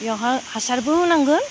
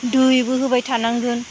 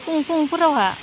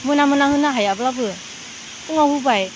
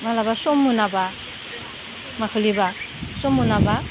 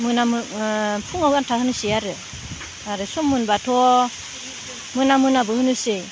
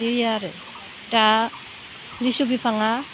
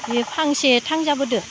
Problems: none marked